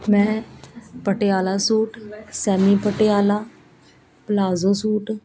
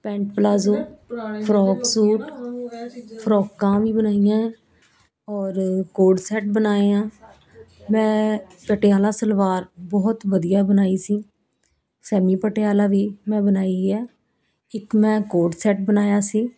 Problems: continuous background conversations